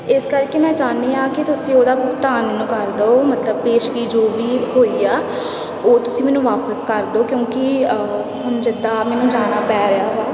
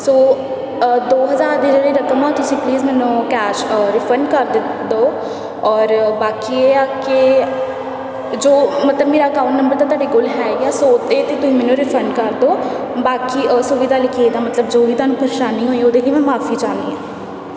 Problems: constant background noise, continuous background conversations